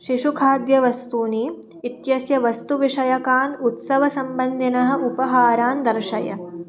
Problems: background sounds at intervals